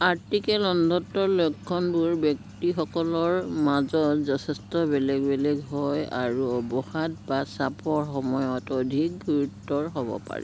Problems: constant background noise